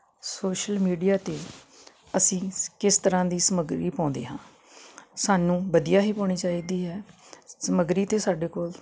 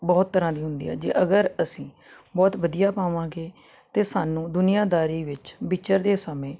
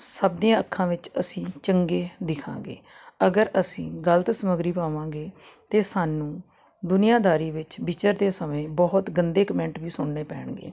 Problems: constant background noise